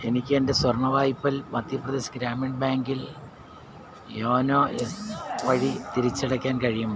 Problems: background sounds at intervals, background conversations at intervals